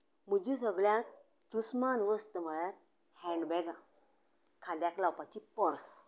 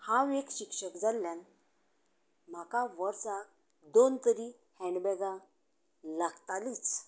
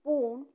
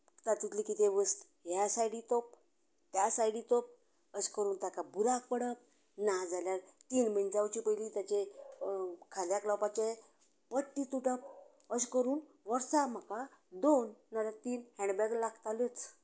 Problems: continuous background conversations